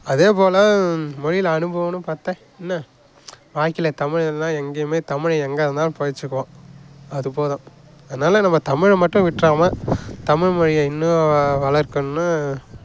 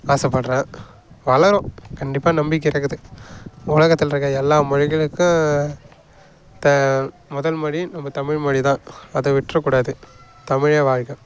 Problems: background sounds at intervals, background conversations at intervals